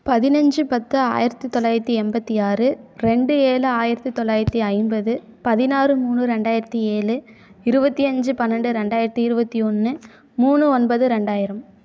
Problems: none marked